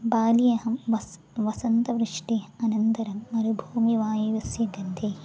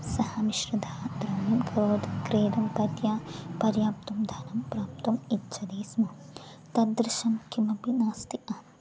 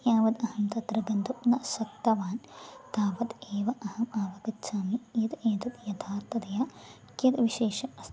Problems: continuous background conversations